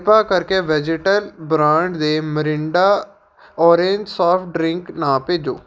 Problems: none marked